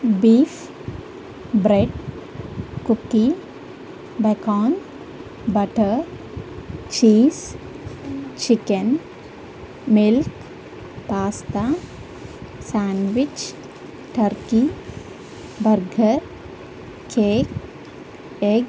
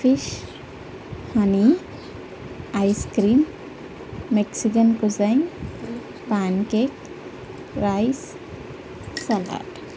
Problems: constant background noise